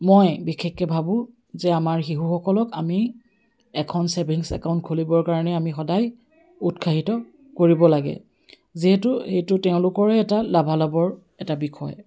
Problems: none marked